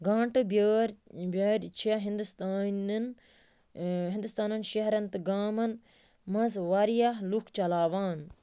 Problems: constant background noise